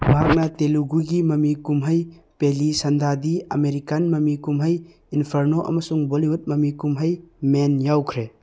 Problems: none marked